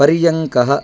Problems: constant background noise